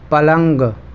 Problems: constant background noise, low volume